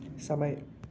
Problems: none marked